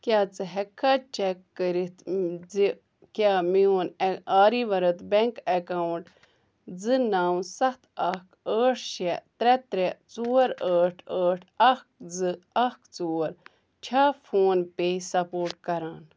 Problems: none marked